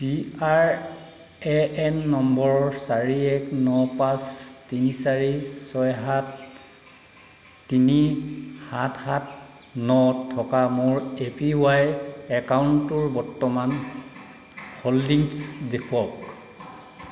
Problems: background sounds at intervals